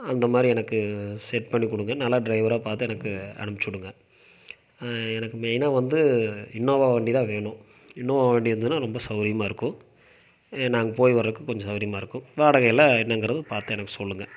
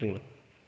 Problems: none marked